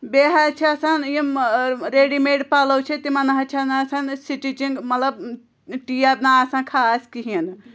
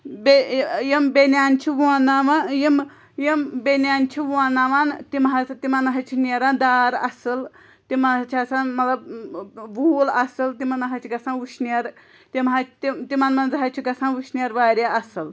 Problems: constant background noise